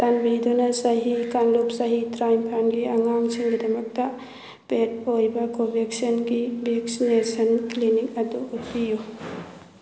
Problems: constant background noise